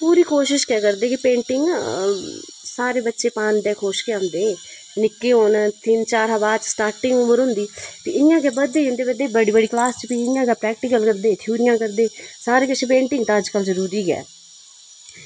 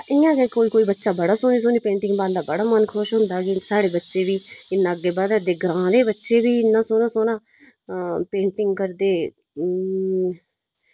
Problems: constant background noise